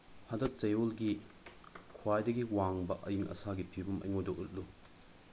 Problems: constant background noise, low volume